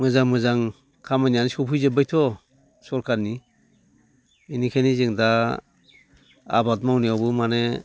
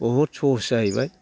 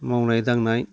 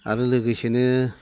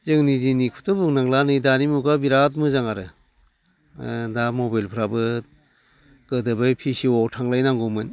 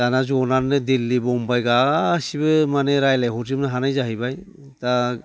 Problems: constant background noise